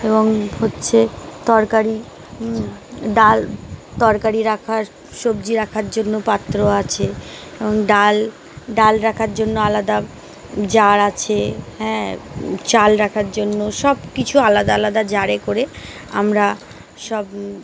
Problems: none marked